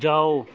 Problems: none marked